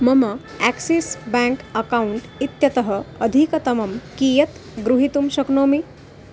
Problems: constant background noise